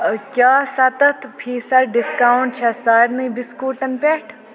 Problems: constant background noise, continuous background conversations